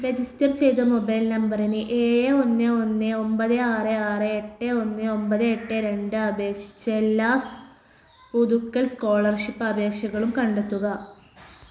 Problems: background sounds at intervals